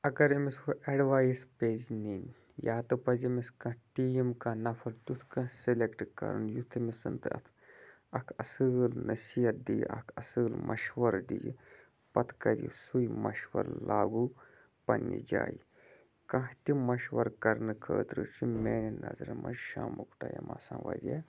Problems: constant background noise